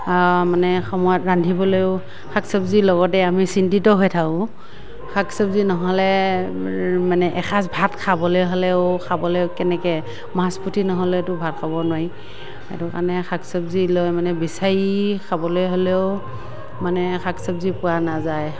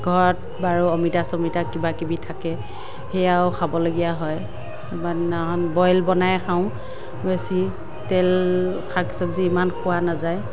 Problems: none marked